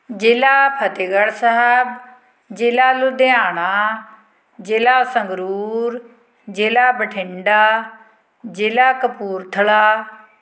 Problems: constant background noise